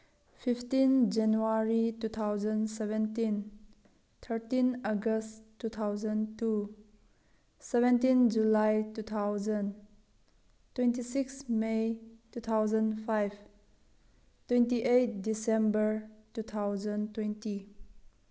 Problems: low volume